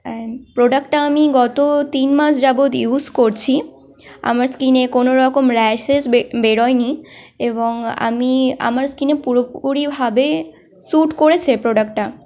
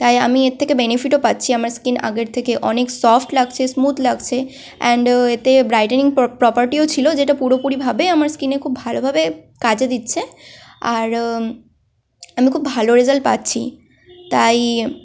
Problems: none marked